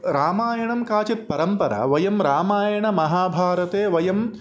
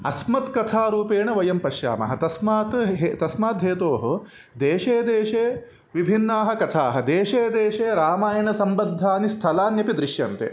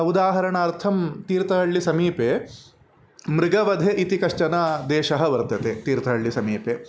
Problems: background sounds at intervals